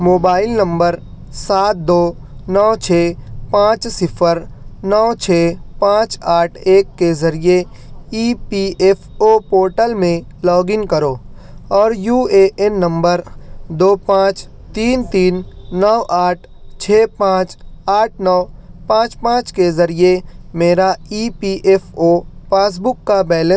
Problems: none marked